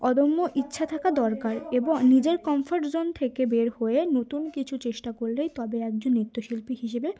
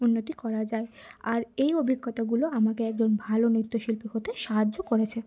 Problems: constant background noise